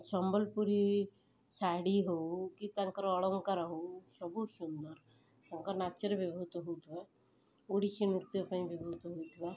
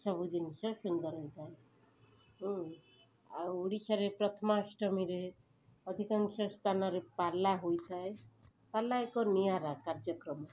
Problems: background sounds at intervals, background conversations at intervals